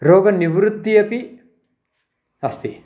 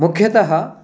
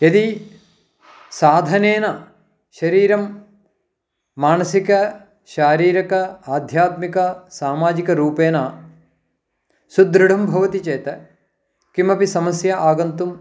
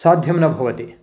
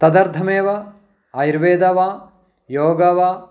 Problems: background sounds at intervals